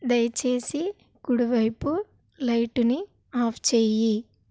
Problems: none marked